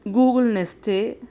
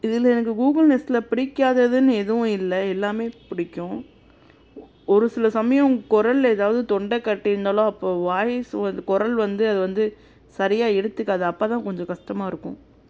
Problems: constant background noise